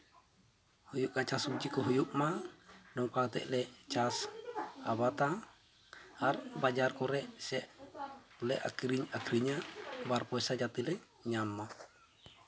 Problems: background sounds at intervals, continuous background conversations